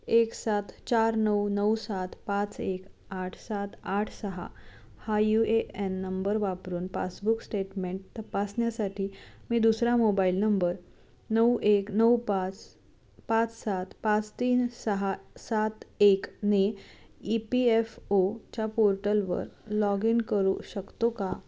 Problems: none marked